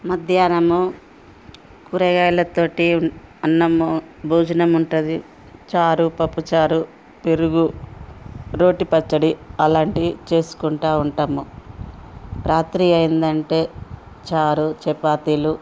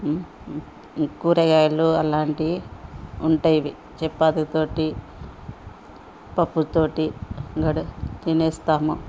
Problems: background conversations at intervals